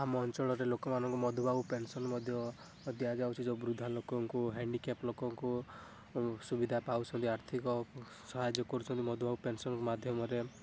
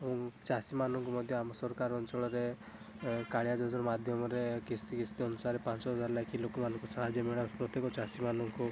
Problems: background sounds at intervals